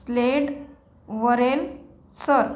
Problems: background sounds at intervals